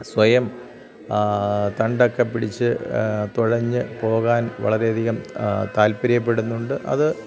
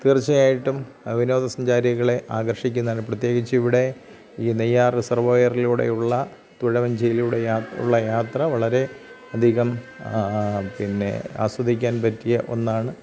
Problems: none marked